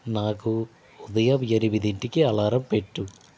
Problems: constant background noise